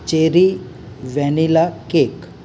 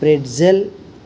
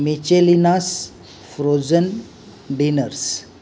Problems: none marked